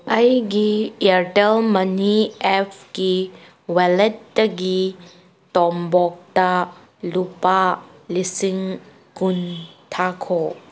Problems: background sounds at intervals